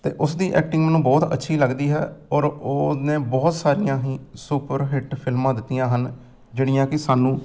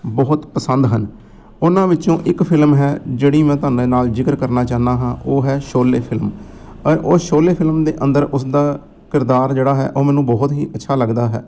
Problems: none marked